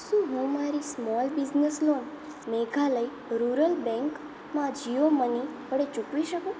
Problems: constant background noise, low volume